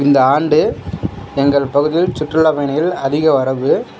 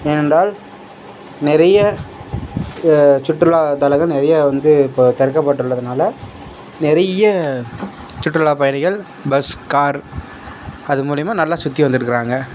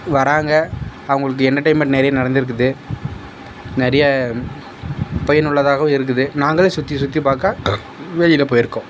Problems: background sounds at intervals